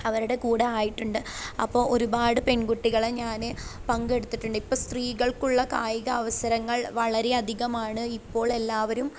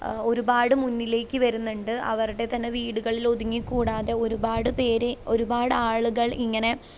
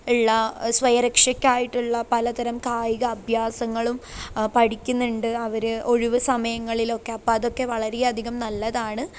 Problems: none marked